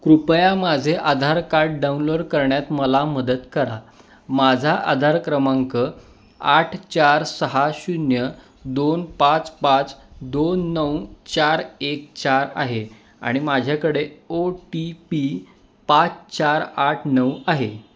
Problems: none marked